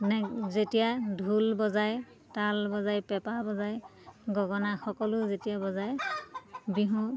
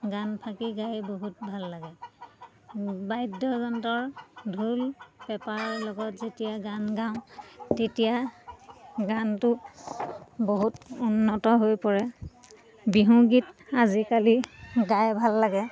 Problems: constant background noise, continuous background conversations